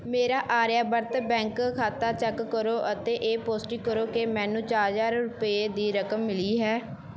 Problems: background sounds at intervals